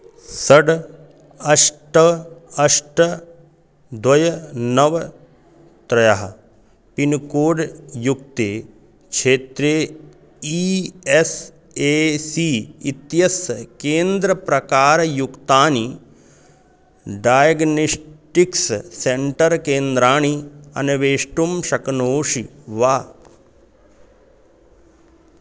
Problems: constant background noise